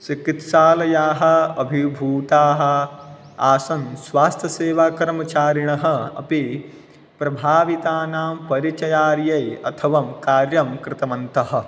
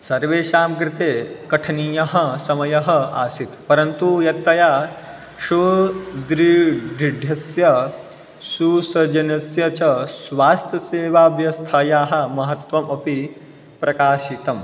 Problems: none marked